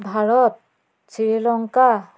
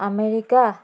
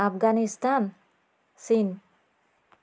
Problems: constant background noise